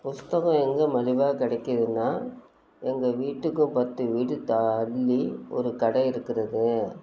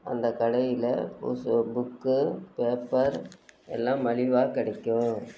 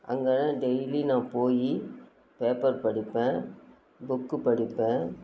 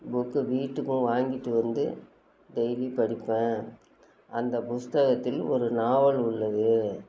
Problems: none marked